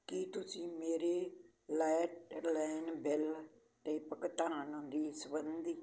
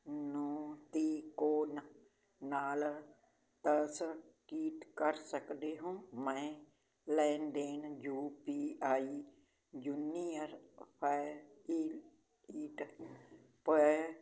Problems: background sounds at intervals